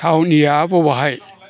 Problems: constant background noise